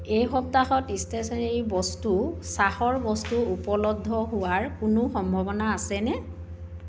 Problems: background sounds at intervals